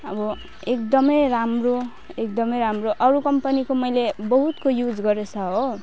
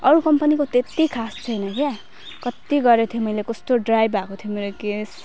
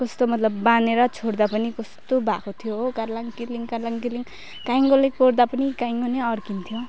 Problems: none marked